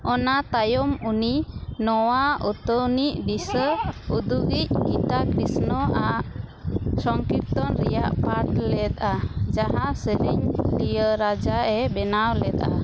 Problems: constant background noise